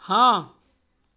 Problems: none marked